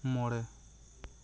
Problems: constant background noise